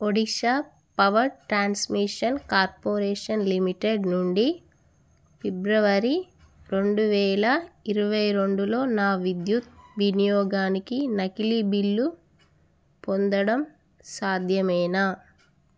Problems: none marked